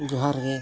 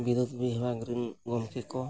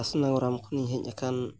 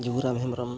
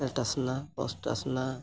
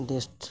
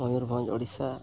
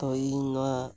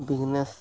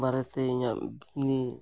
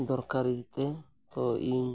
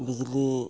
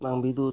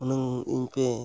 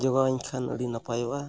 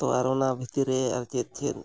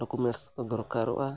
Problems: background sounds at intervals